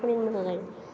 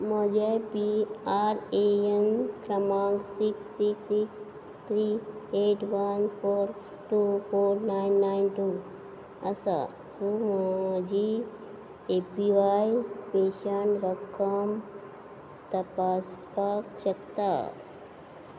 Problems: none marked